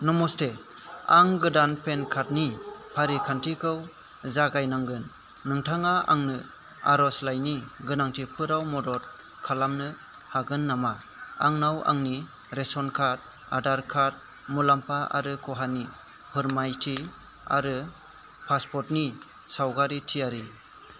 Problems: constant background noise